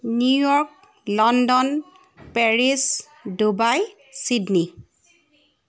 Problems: constant background noise